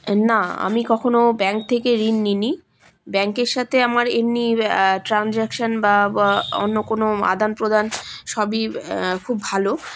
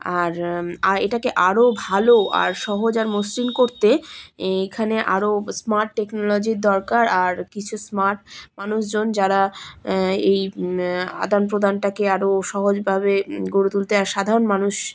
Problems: constant background noise